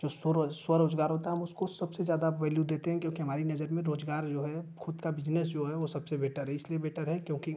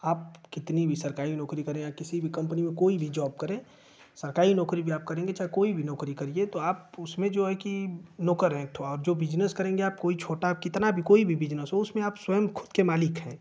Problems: constant background noise